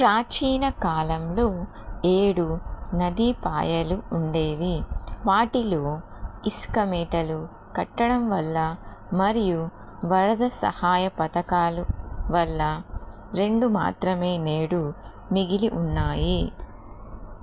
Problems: constant background noise